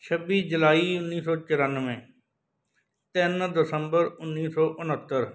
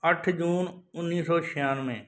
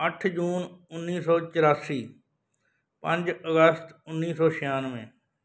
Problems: background sounds at intervals